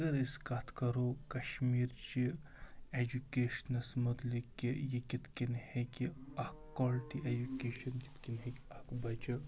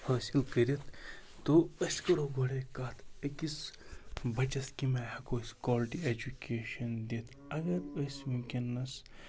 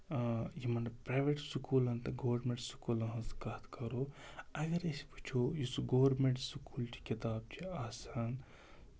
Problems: background sounds at intervals, background conversations at intervals